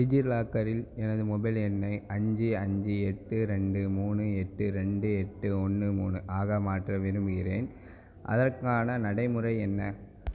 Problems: none marked